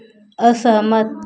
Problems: constant background noise